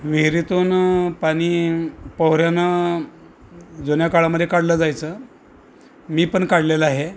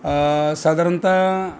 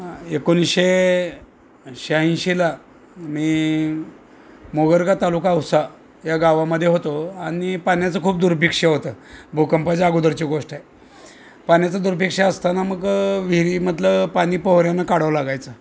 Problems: constant background noise, background conversations at intervals